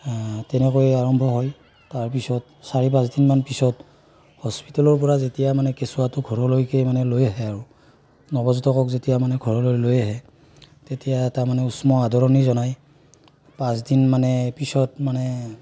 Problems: none marked